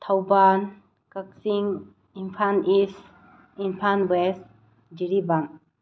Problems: low volume